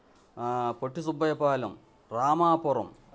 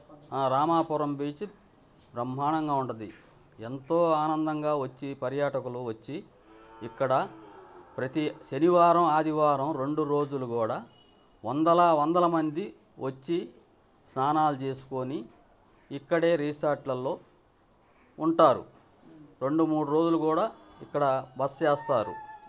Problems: constant background noise, background conversations at intervals